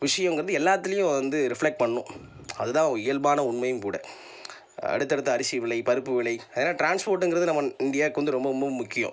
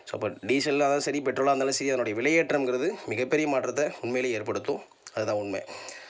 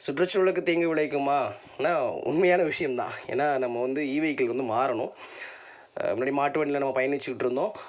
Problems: none marked